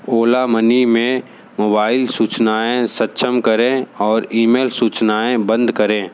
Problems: background sounds at intervals